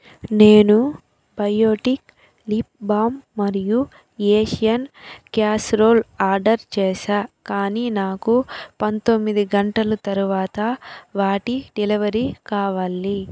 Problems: constant background noise